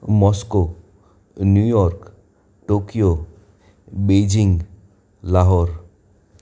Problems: none marked